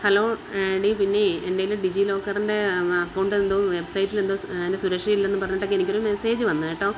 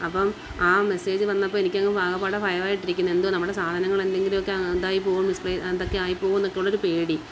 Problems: constant background noise